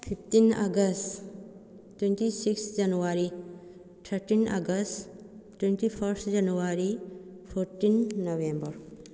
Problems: background conversations at intervals